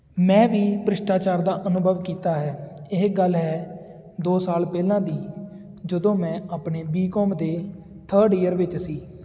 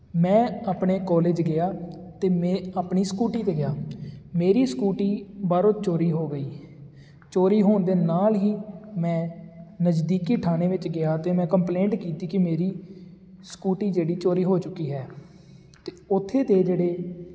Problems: constant background noise